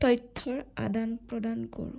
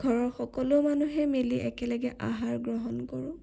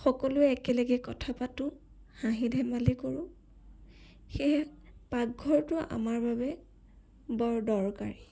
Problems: none marked